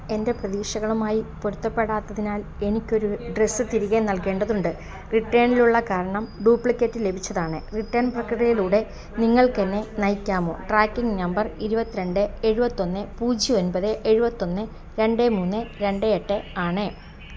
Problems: constant background noise